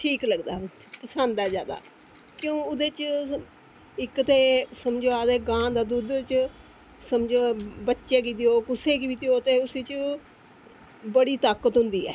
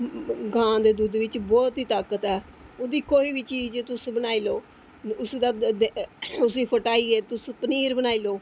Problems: constant background noise